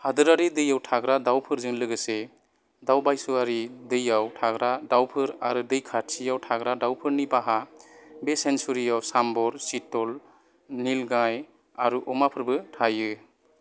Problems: none marked